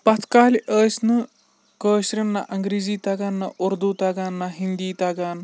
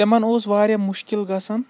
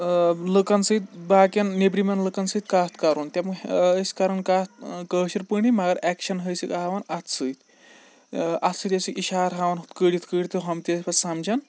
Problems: background sounds at intervals